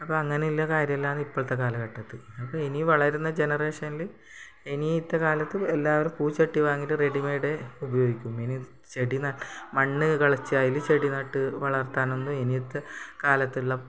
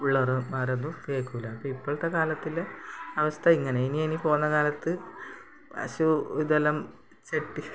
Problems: background sounds at intervals